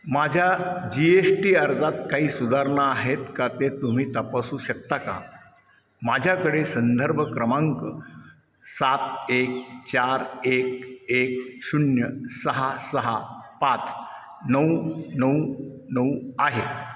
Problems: none marked